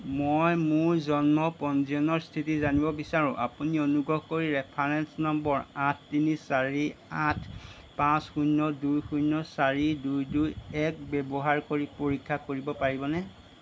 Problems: none marked